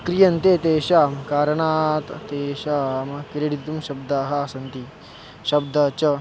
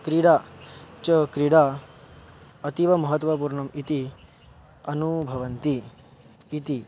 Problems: none marked